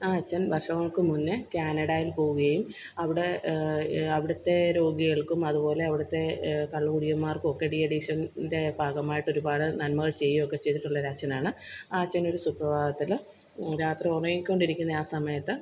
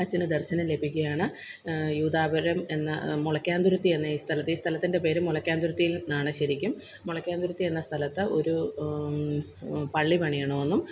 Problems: constant background noise